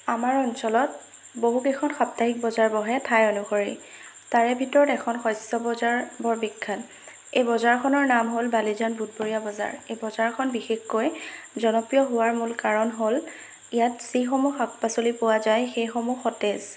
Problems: constant background noise